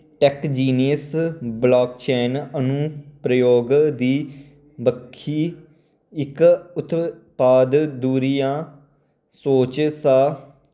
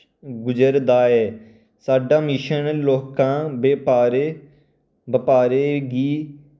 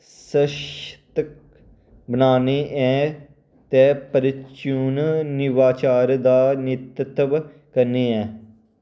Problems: none marked